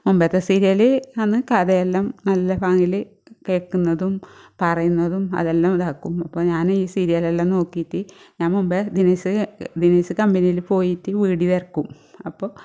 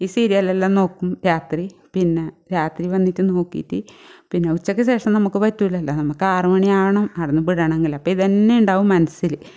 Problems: none marked